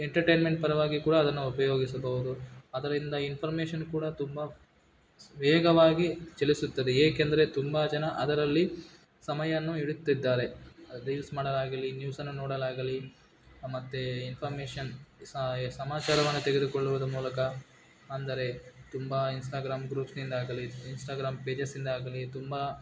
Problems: background sounds at intervals